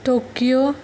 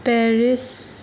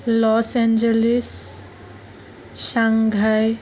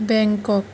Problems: constant background noise